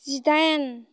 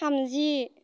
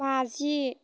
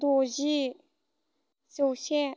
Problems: constant background noise